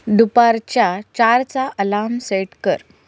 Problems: background sounds at intervals